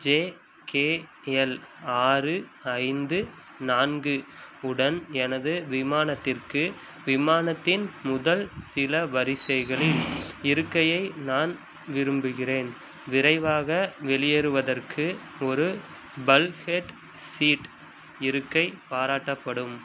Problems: constant background noise